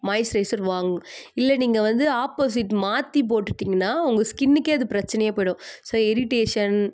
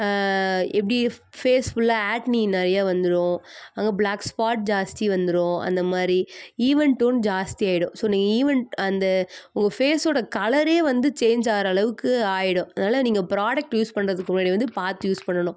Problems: none marked